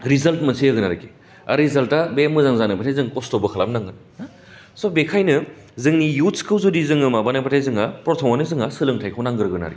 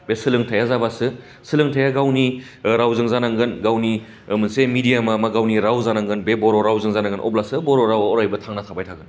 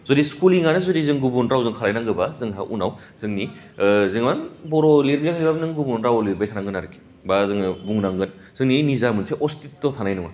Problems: low volume